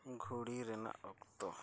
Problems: low volume